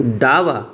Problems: background sounds at intervals